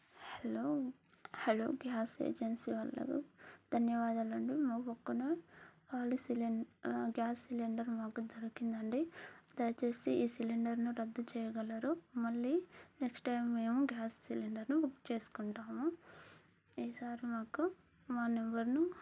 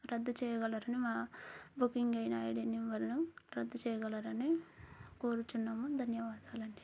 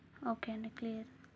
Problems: low volume